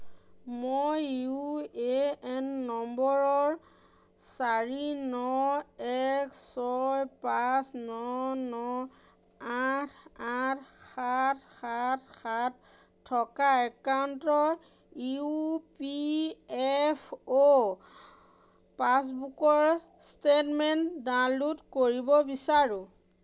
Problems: none marked